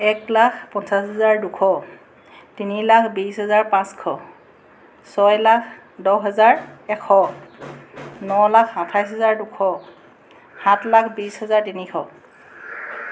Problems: constant background noise